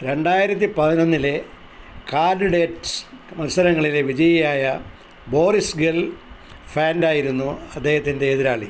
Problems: constant background noise